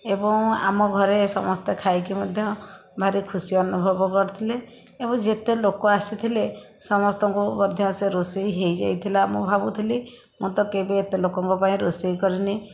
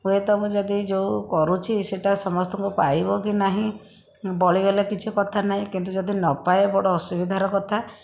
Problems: constant background noise